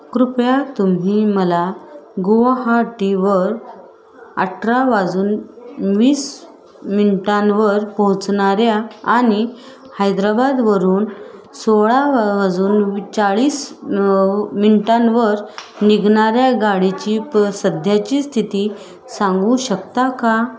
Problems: constant background noise, continuous background conversations